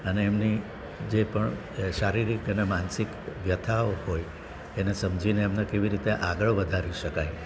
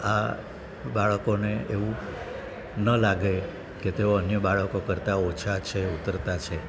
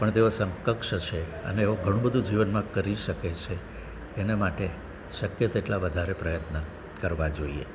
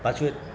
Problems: constant background noise